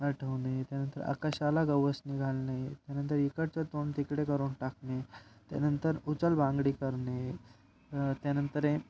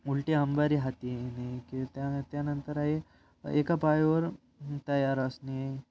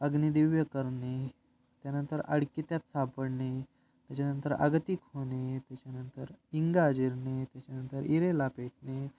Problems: background sounds at intervals